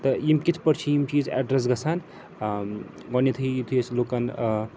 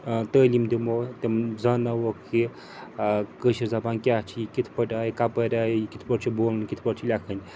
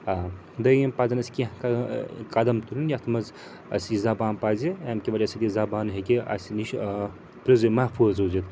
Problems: constant background noise